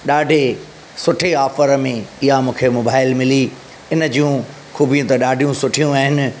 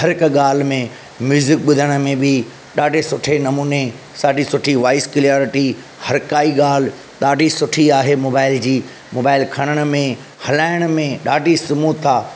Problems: constant background noise